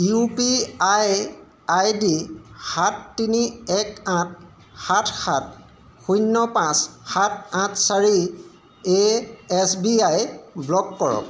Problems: none marked